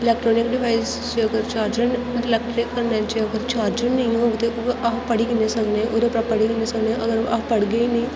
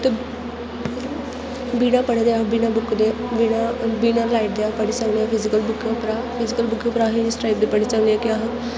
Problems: constant background noise